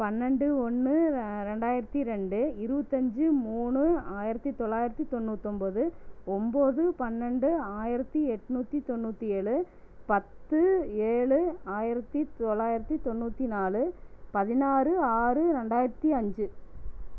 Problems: low volume